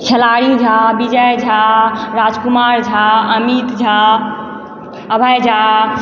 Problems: background conversations at intervals